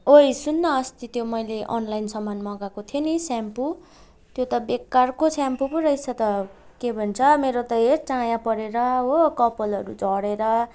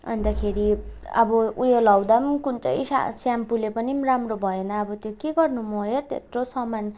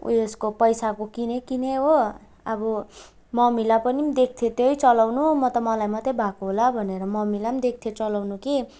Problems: none marked